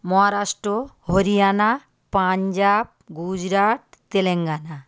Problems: constant background noise